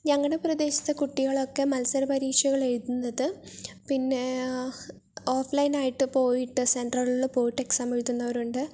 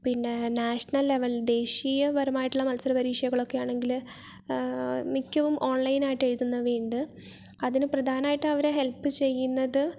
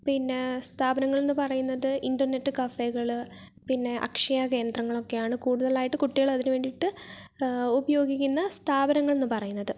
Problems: none marked